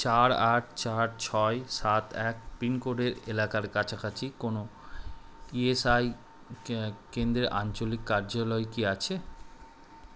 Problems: constant background noise